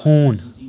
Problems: constant background noise